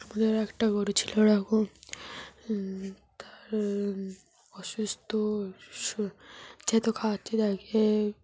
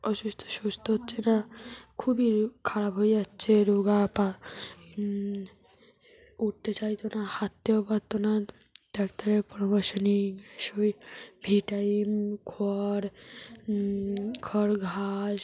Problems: constant background noise, background conversations at intervals